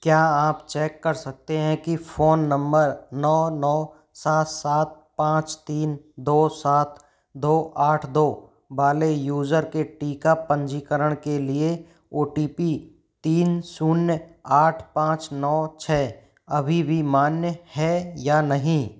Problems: none marked